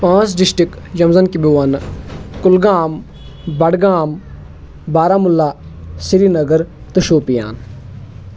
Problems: none marked